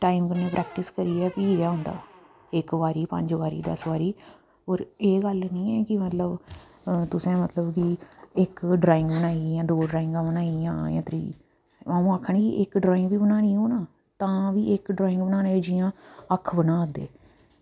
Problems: low volume